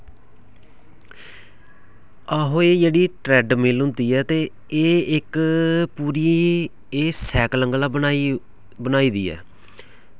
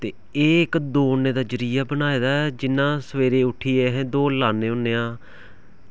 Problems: background sounds at intervals